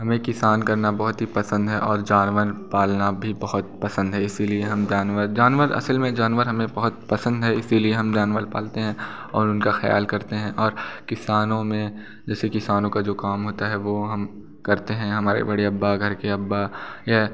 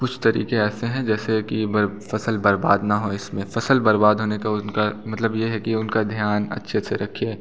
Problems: background sounds at intervals